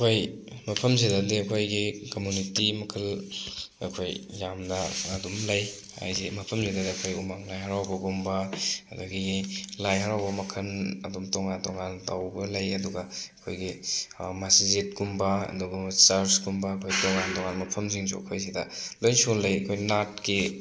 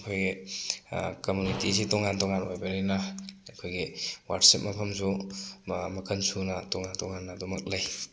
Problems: background sounds at intervals